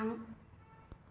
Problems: constant background noise